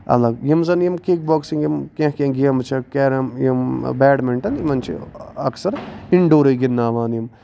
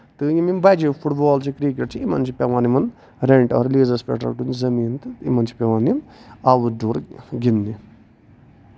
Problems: none marked